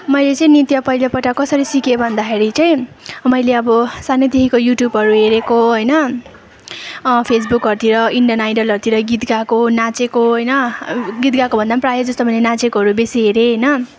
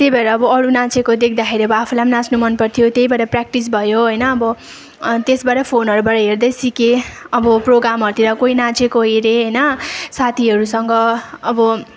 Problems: background sounds at intervals, continuous background conversations